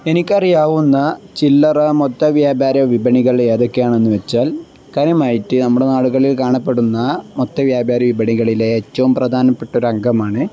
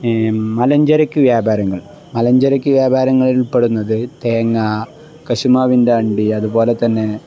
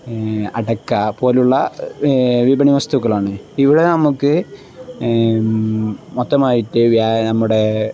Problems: none marked